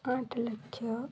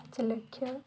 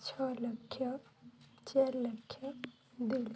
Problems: background sounds at intervals